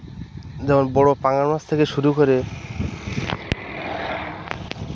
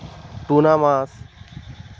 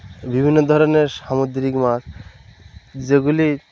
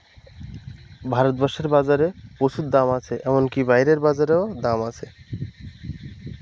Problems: none marked